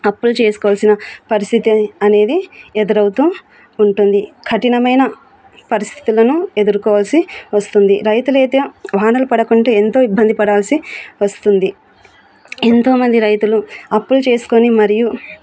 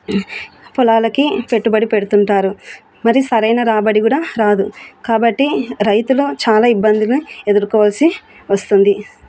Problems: background sounds at intervals